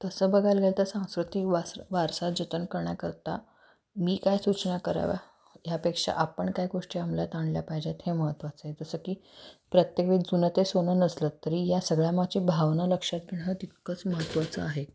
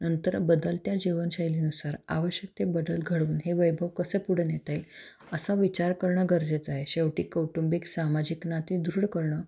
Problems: none marked